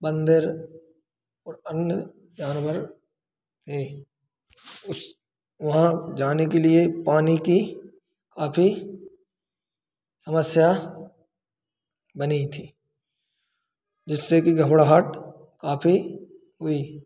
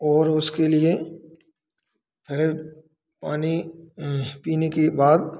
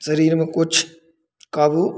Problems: constant background noise, echo